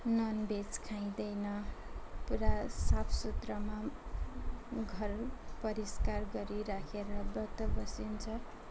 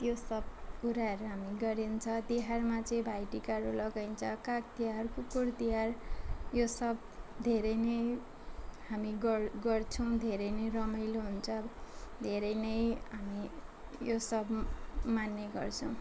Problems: constant background noise, background conversations at intervals